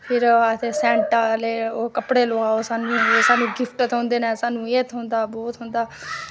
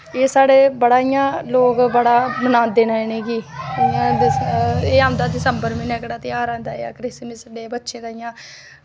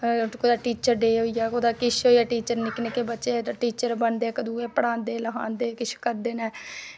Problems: none marked